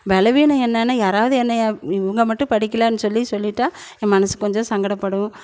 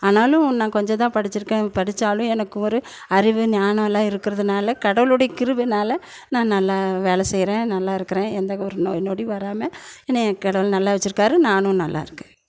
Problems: none marked